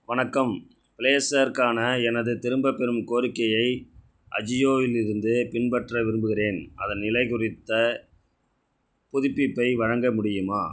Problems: none marked